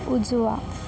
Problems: none marked